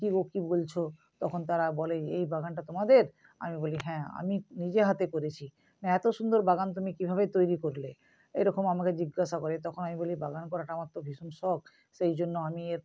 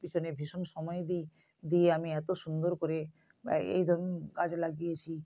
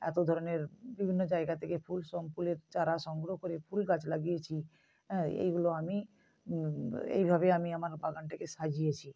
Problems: background sounds at intervals